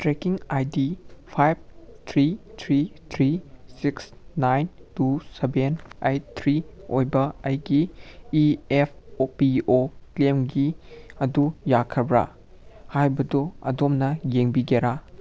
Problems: none marked